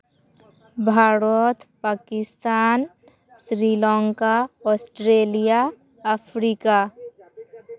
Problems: background sounds at intervals